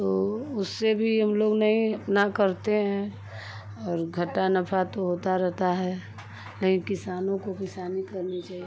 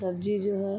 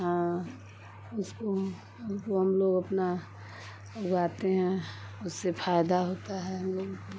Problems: constant background noise